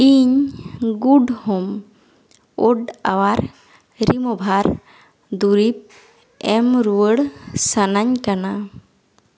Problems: echo